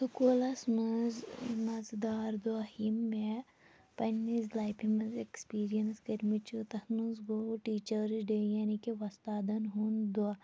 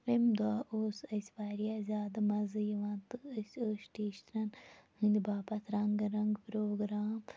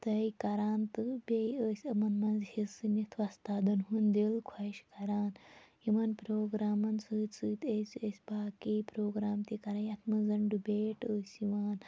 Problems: none marked